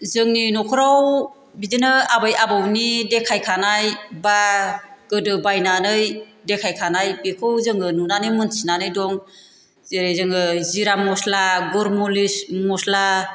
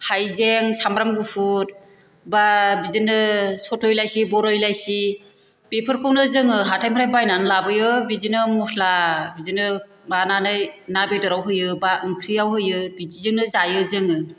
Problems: constant background noise